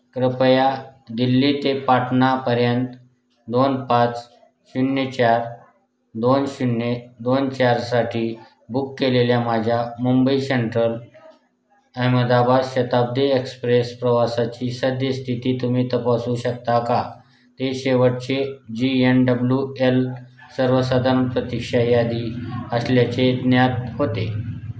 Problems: constant background noise, background conversations at intervals